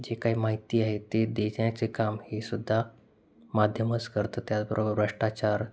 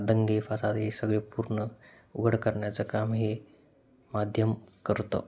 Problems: constant background noise